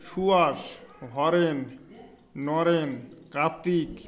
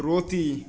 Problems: continuous background conversations